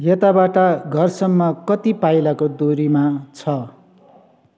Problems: echo